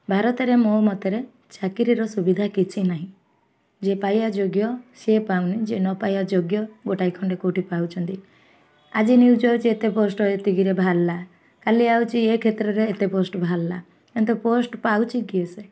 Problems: none marked